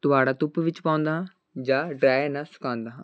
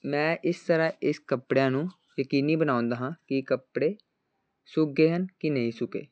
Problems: constant background noise